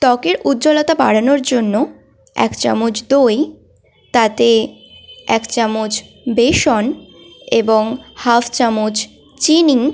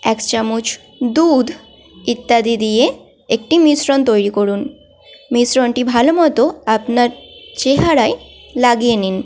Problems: constant background noise, continuous background conversations